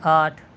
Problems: constant background noise